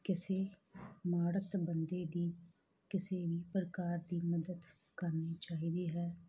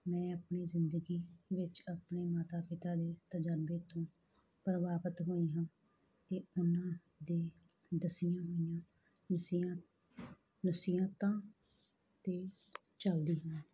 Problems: background conversations at intervals